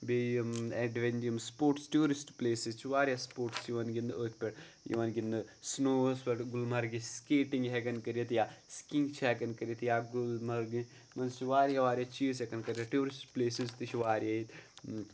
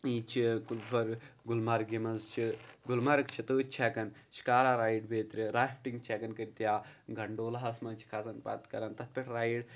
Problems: none marked